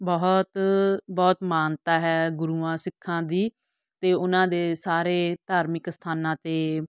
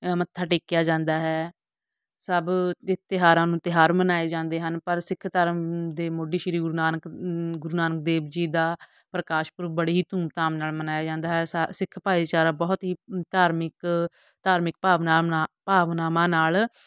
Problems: none marked